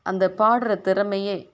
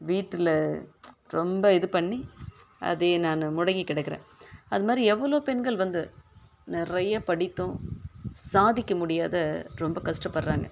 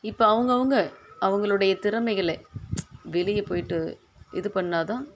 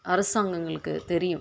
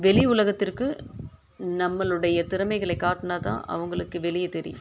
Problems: none marked